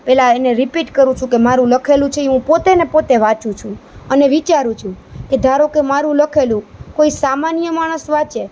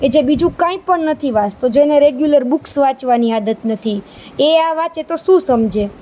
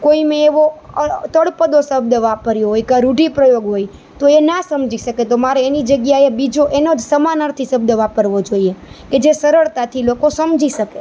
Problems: none marked